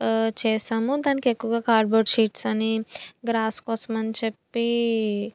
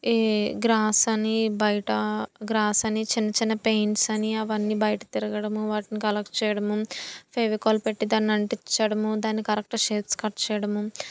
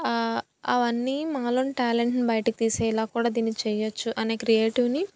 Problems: none marked